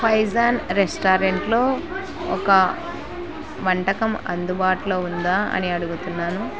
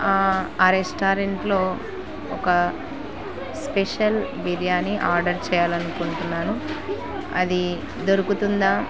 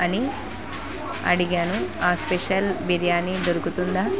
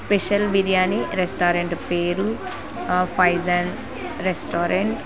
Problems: constant background noise